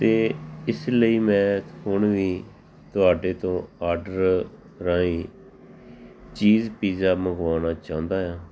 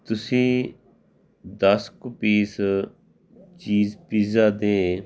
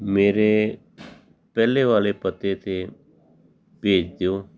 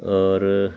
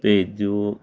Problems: background sounds at intervals, background conversations at intervals